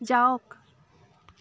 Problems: none marked